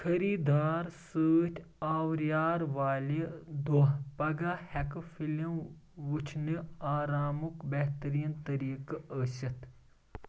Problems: background sounds at intervals